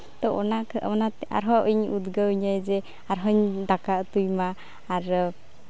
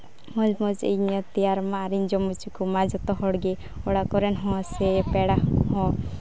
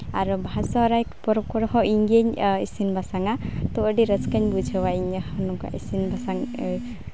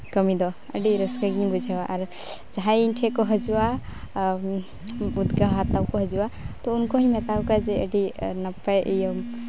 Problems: background sounds at intervals